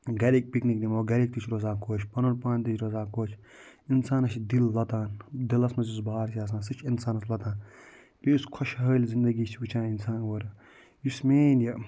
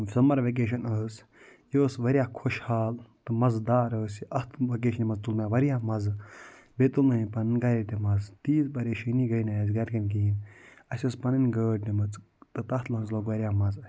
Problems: none marked